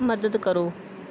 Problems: none marked